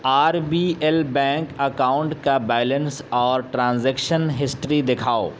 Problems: constant background noise